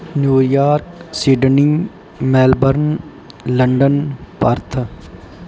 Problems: background sounds at intervals